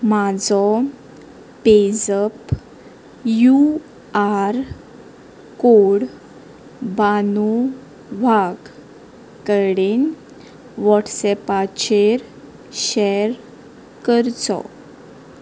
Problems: constant background noise